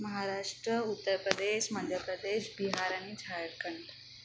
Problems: constant background noise